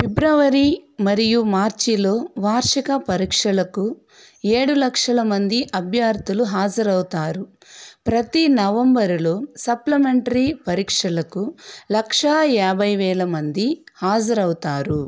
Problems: constant background noise